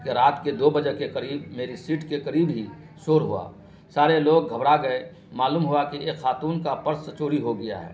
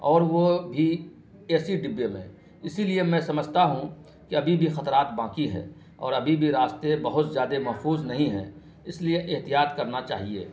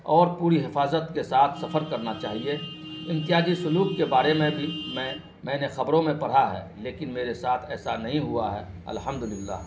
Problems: constant background noise